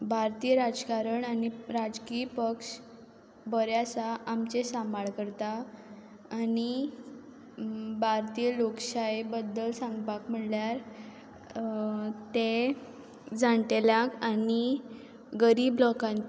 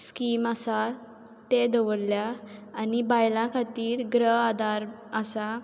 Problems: background sounds at intervals